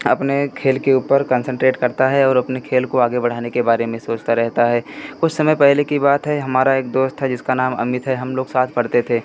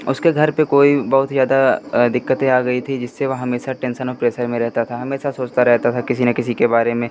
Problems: constant background noise